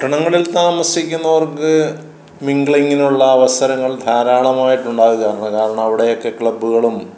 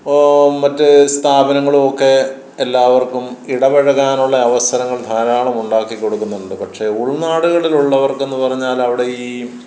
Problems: none marked